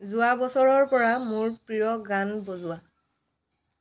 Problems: background sounds at intervals, background conversations at intervals